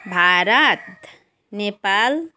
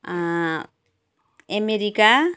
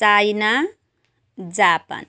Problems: background sounds at intervals